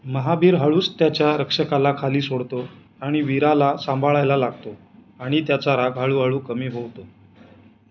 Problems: constant background noise